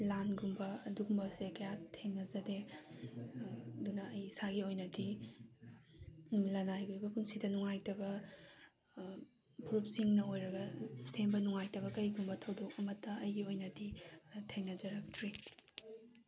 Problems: background sounds at intervals